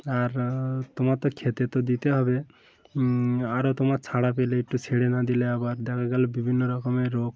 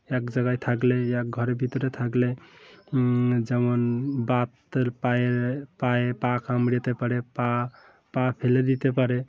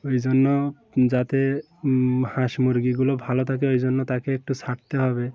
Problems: constant background noise, continuous background conversations